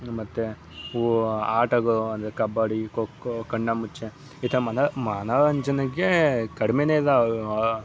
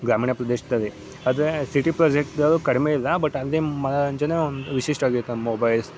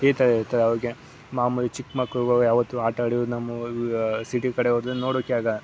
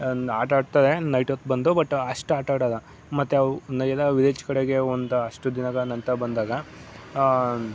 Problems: background sounds at intervals